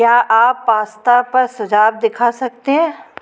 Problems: background sounds at intervals